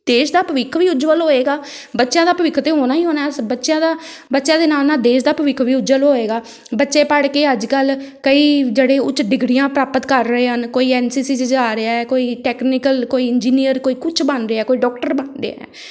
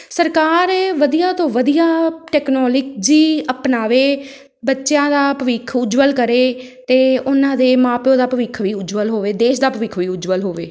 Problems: none marked